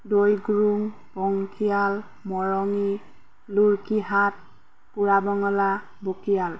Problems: none marked